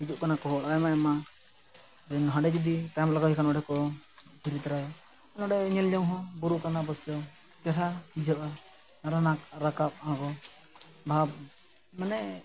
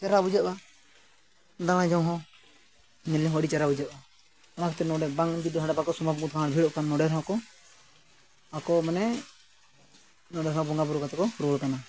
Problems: background sounds at intervals